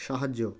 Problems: constant background noise